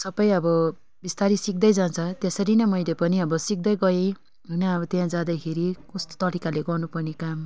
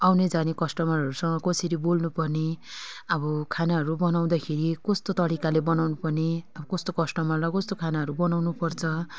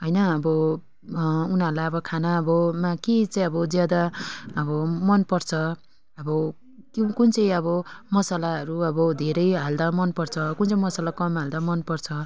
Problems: background conversations at intervals